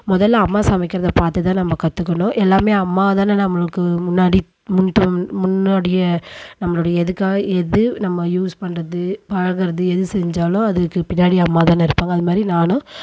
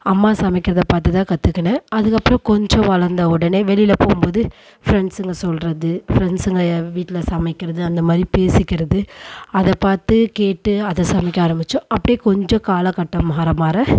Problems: constant background noise